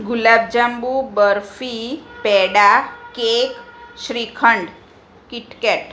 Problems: none marked